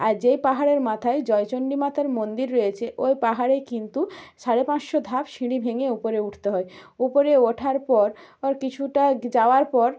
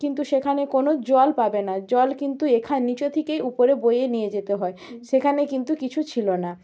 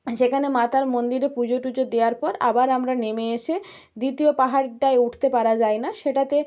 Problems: none marked